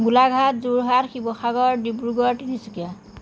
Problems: none marked